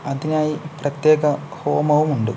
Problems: constant background noise